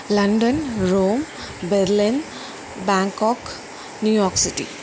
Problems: constant background noise